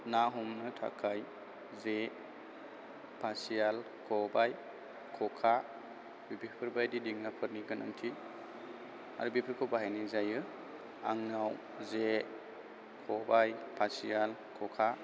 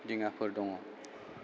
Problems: constant background noise, low volume